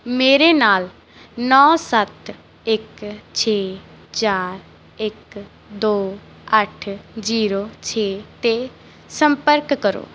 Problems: none marked